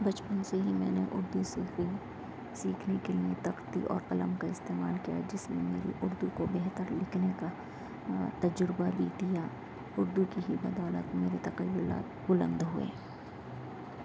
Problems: constant background noise